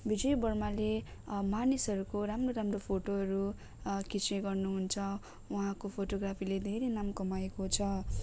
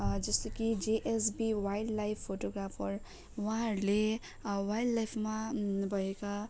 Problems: low volume